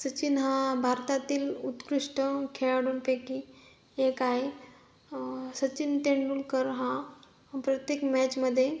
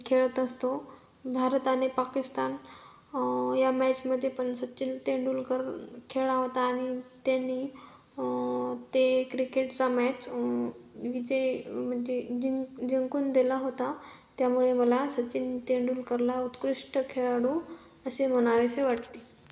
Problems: constant background noise